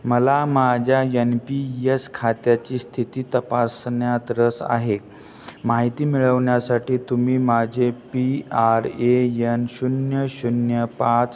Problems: background sounds at intervals